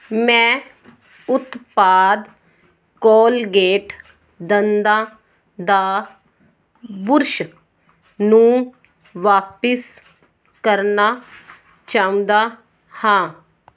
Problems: background sounds at intervals